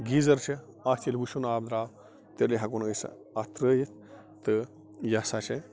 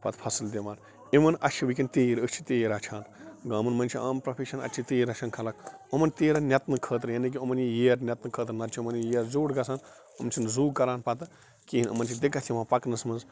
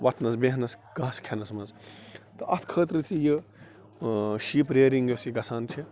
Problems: constant background noise